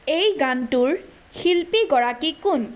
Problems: constant background noise